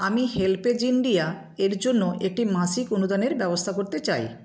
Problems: background sounds at intervals